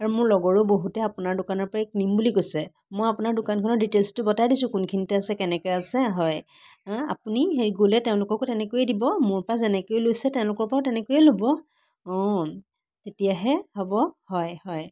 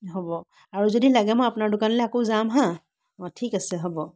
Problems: constant background noise